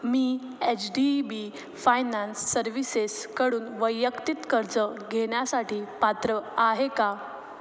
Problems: constant background noise